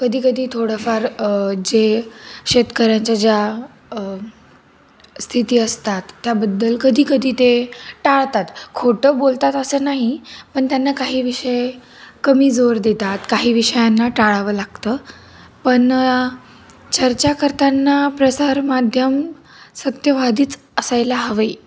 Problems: constant background noise